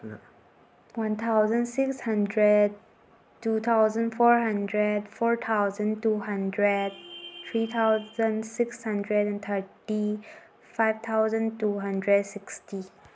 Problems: background sounds at intervals, background conversations at intervals